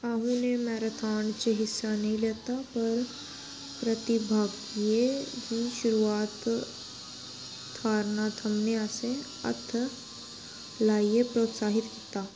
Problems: constant background noise